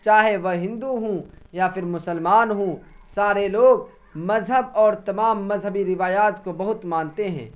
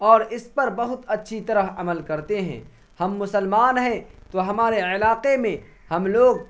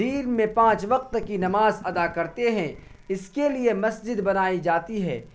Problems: constant background noise